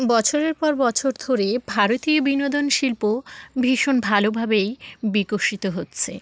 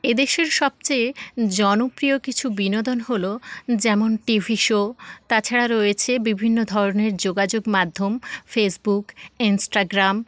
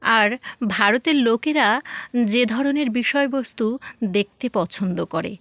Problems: none marked